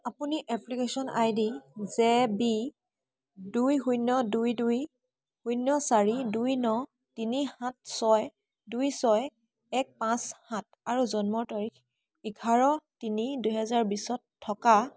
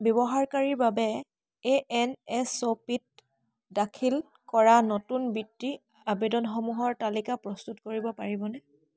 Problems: constant background noise, background conversations at intervals